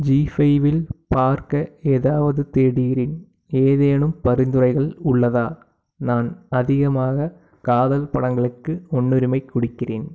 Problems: background sounds at intervals